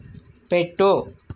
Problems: background sounds at intervals